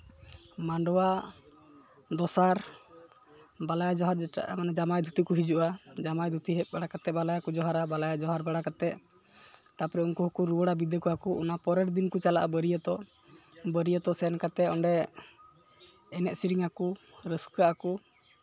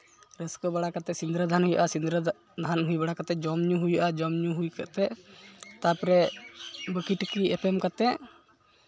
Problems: background sounds at intervals, background conversations at intervals